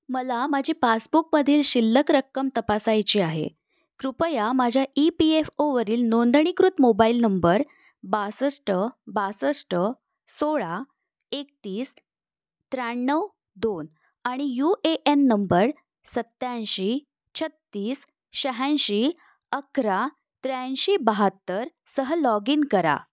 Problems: none marked